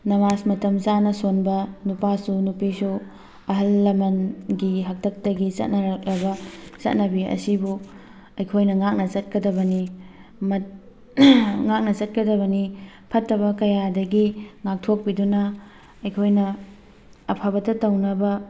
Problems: background sounds at intervals, background conversations at intervals